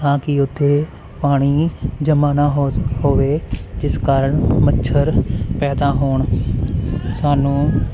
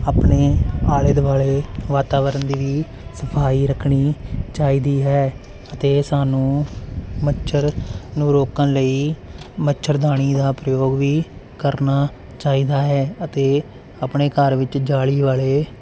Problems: constant background noise